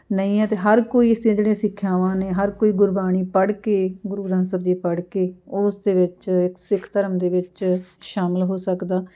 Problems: background sounds at intervals, background conversations at intervals